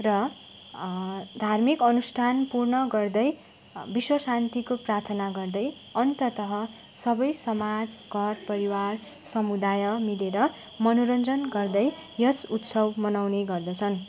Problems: constant background noise